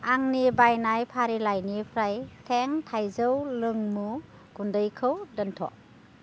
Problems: none marked